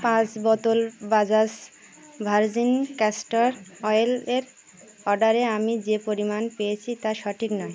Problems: none marked